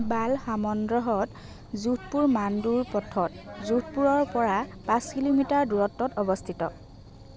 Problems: continuous background conversations